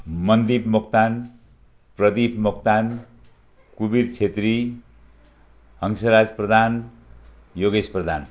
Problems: none marked